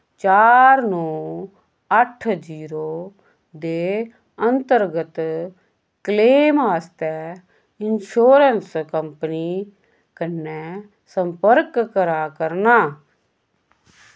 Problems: none marked